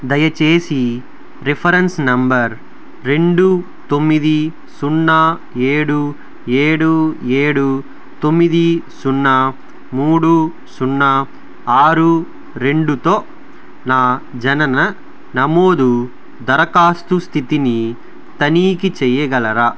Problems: none marked